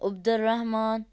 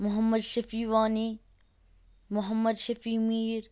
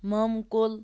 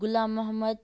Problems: none marked